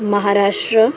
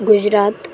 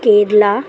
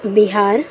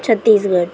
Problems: constant background noise, continuous background conversations